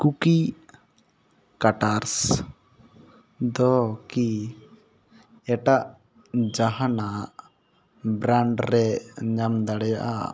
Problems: none marked